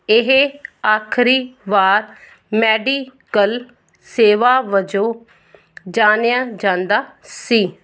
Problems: none marked